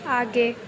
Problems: constant background noise